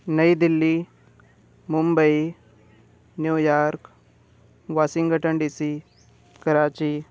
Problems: none marked